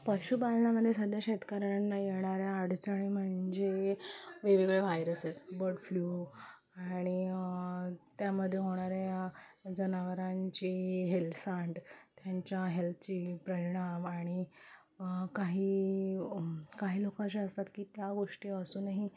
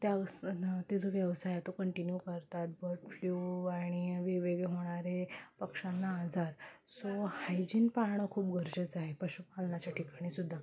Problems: background sounds at intervals